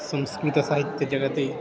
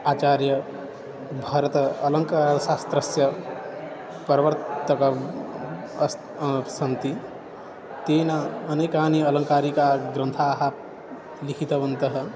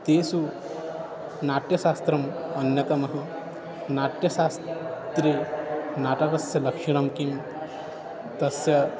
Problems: constant background noise